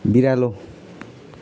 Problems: background sounds at intervals